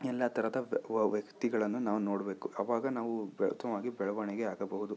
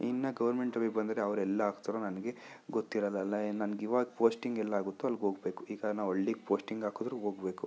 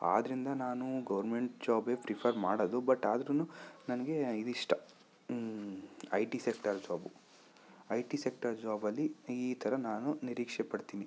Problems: none marked